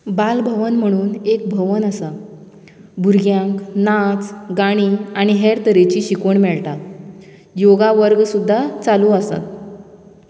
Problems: background conversations at intervals